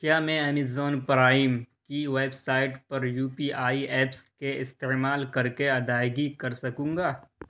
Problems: constant background noise